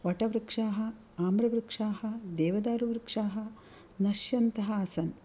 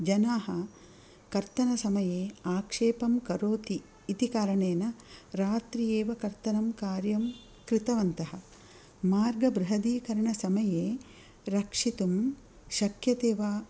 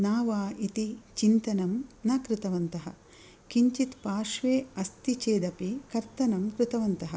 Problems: none marked